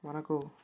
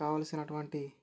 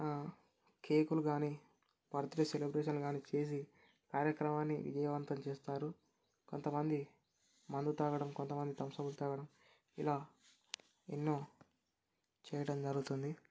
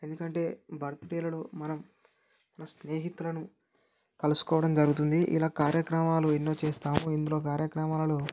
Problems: none marked